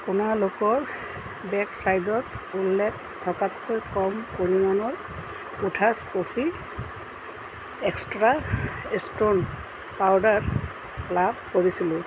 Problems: constant background noise